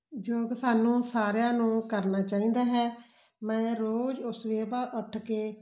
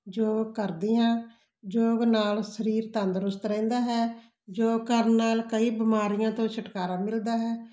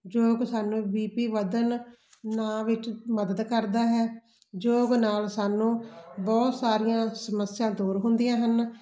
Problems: constant background noise